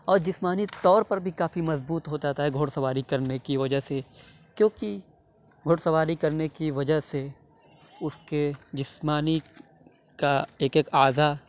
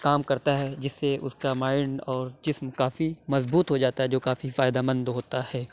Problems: none marked